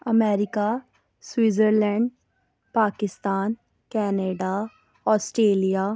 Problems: none marked